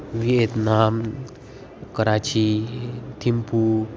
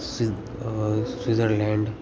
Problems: background sounds at intervals